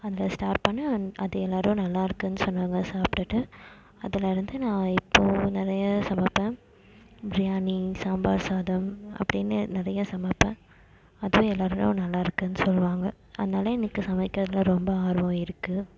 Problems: constant background noise